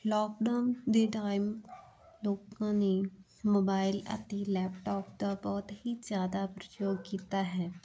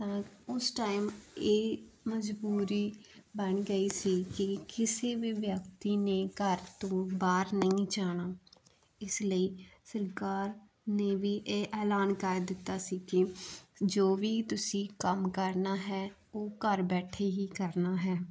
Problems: constant background noise